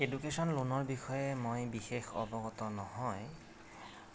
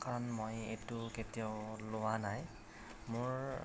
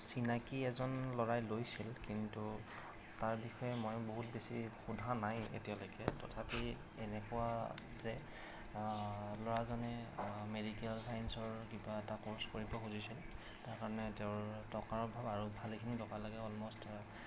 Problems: none marked